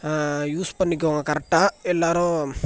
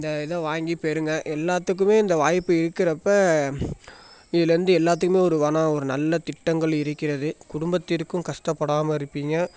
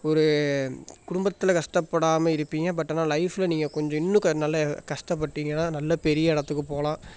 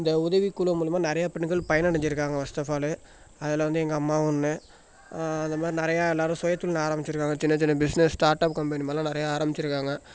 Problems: background conversations at intervals